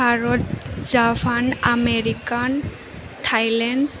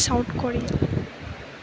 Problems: constant background noise